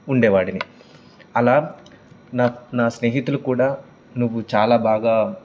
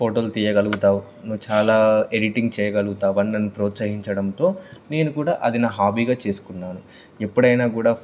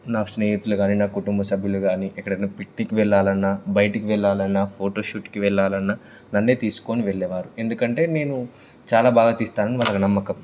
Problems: background sounds at intervals